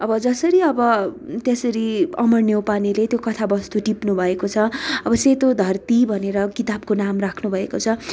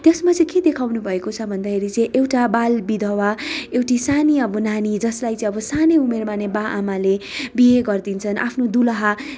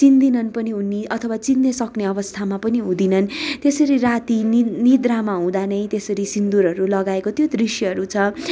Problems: none marked